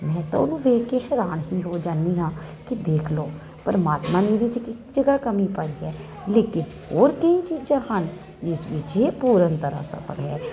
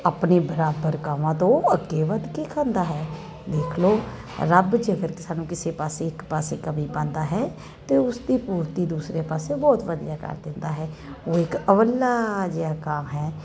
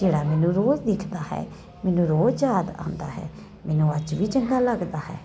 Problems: none marked